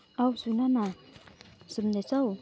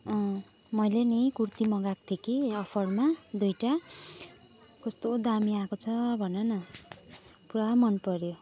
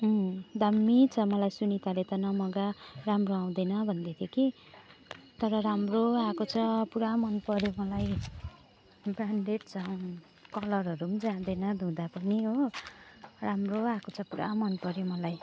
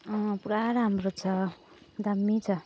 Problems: background sounds at intervals